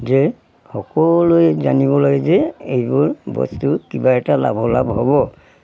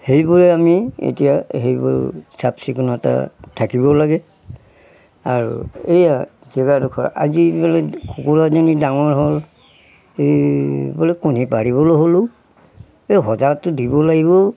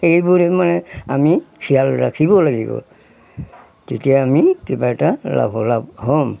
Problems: background sounds at intervals